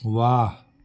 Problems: constant background noise